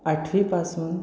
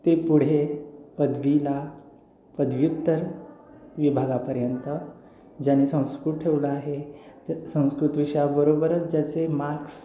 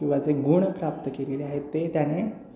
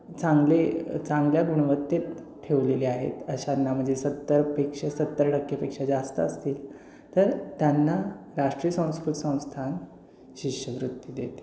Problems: constant background noise